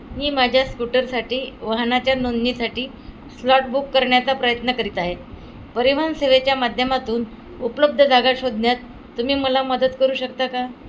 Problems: constant background noise